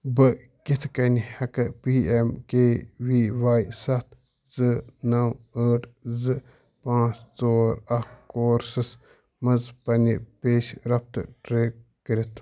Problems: none marked